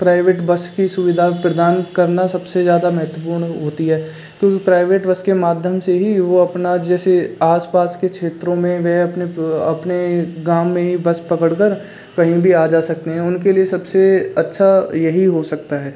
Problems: constant background noise